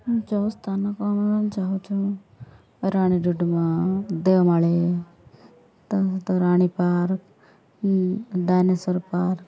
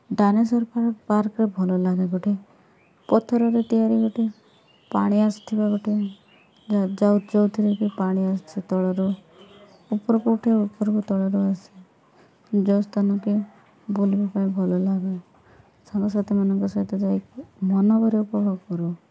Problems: background sounds at intervals